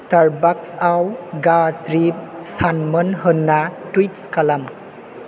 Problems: constant background noise